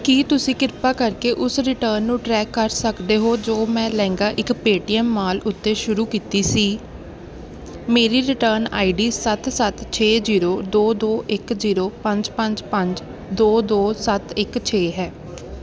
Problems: none marked